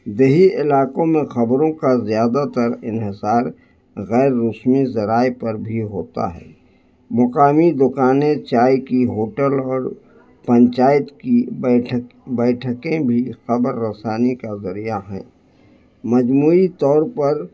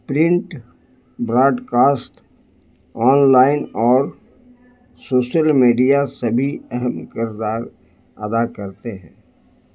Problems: low volume